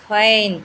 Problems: constant background noise